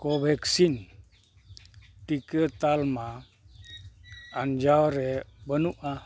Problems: constant background noise, low volume